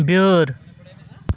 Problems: none marked